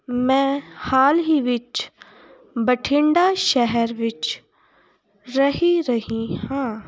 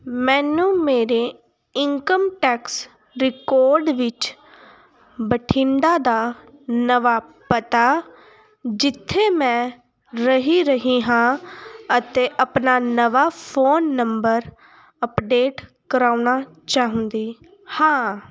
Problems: continuous background conversations